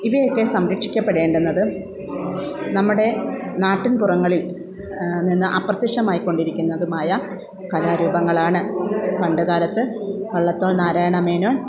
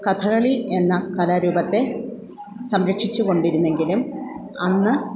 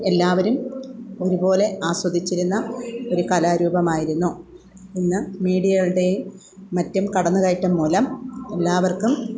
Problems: background conversations at intervals